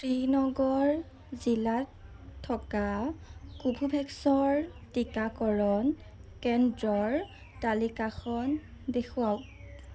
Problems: none marked